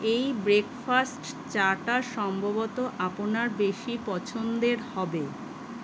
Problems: none marked